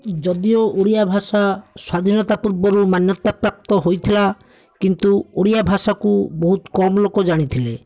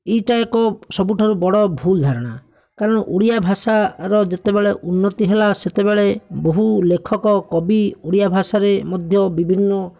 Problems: none marked